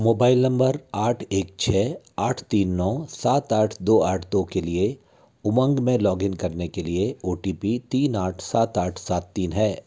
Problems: constant background noise